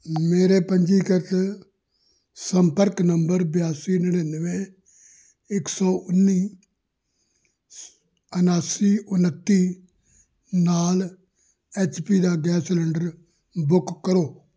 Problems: none marked